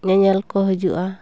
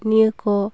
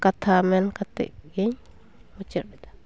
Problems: background sounds at intervals, continuous background conversations